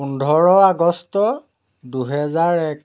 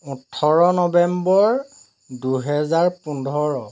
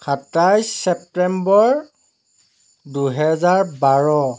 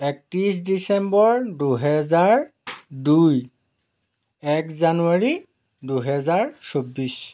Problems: background sounds at intervals